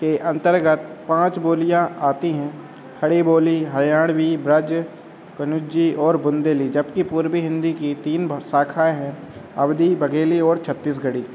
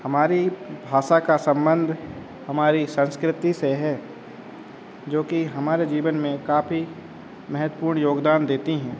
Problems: constant background noise, background conversations at intervals